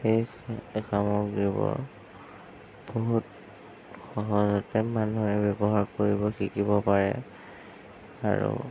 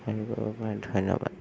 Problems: none marked